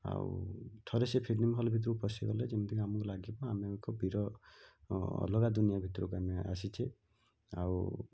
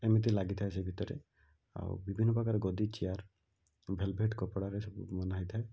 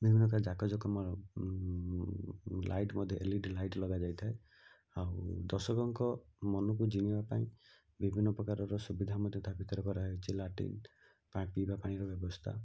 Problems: low volume